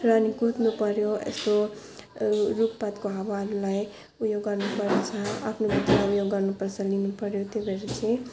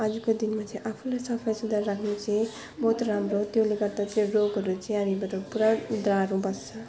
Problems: none marked